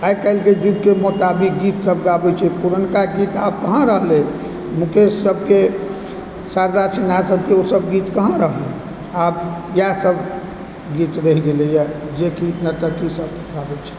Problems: background sounds at intervals